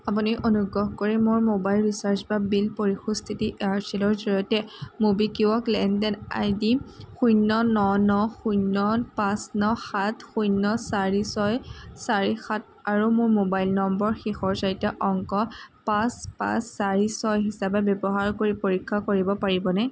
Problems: constant background noise